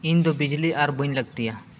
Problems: none marked